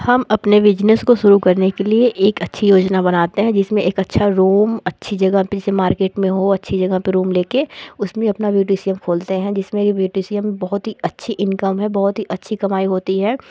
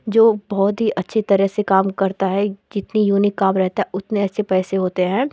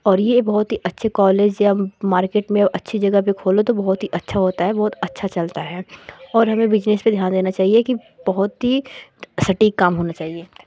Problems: constant background noise